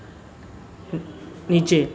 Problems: constant background noise